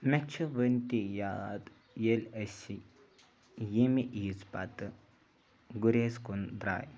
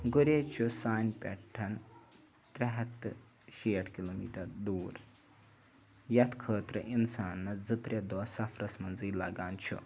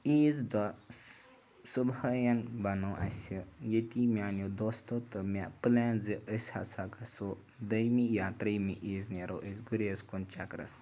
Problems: background sounds at intervals